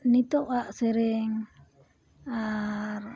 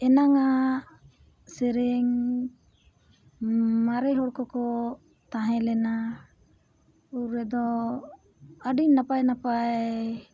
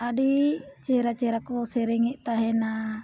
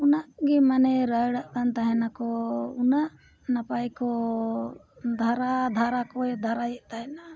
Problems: none marked